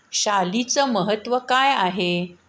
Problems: none marked